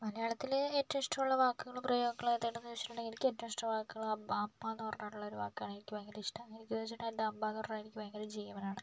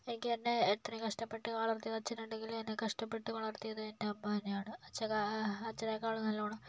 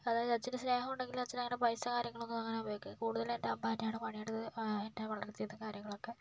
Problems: low volume